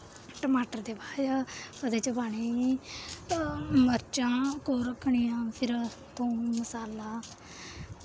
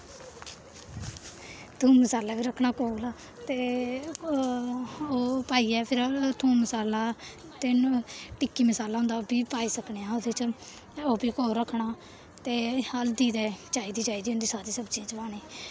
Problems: background sounds at intervals